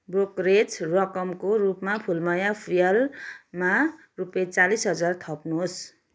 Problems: background sounds at intervals